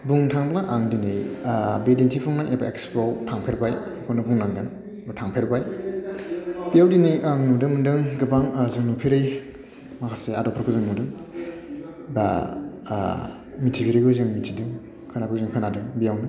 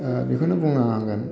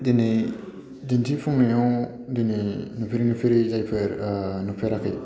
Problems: none marked